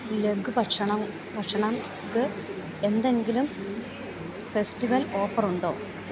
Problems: none marked